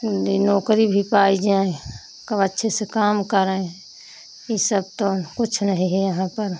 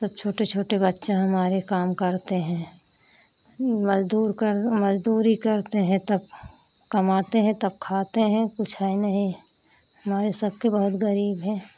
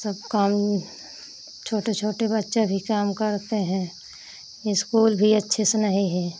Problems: constant background noise